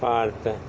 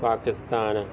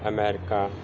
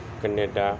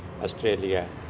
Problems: constant background noise